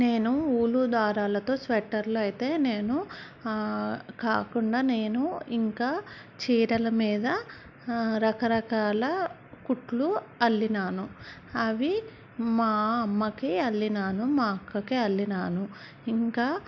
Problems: background sounds at intervals